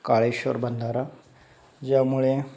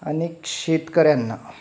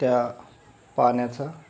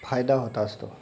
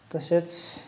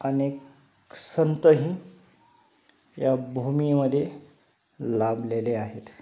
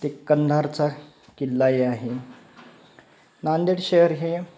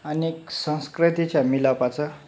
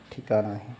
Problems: background sounds at intervals